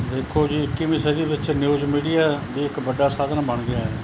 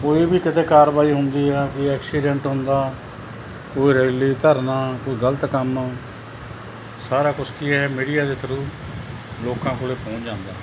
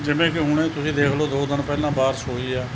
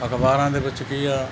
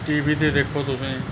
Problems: none marked